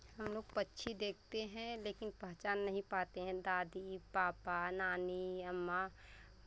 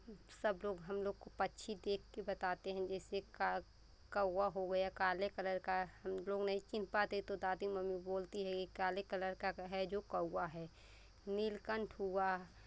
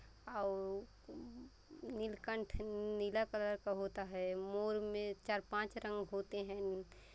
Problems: constant background noise, background conversations at intervals